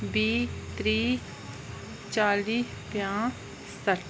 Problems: constant background noise